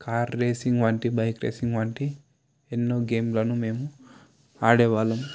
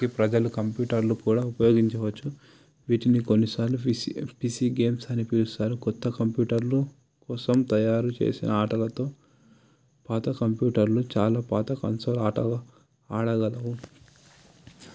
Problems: background sounds at intervals